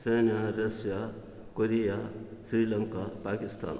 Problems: none marked